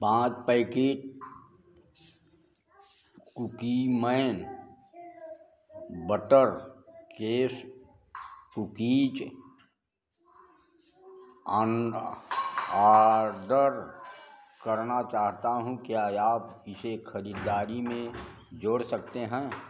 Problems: background sounds at intervals